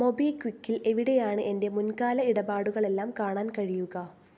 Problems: low volume